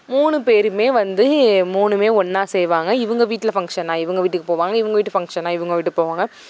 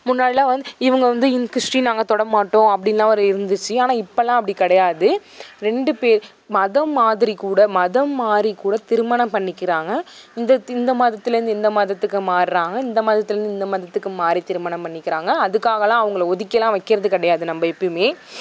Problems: background sounds at intervals